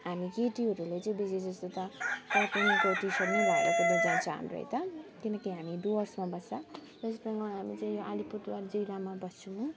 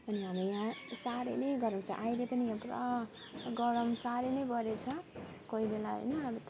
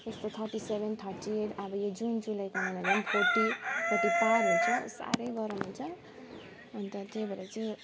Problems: constant background noise, background conversations at intervals, low volume